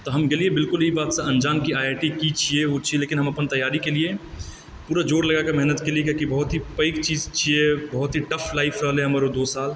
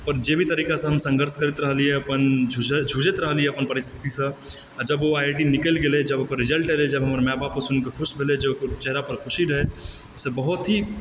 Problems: constant background noise